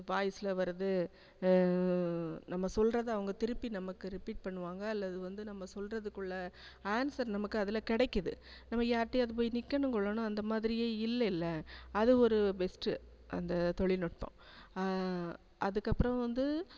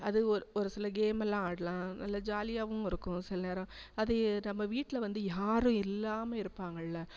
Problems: constant background noise, low volume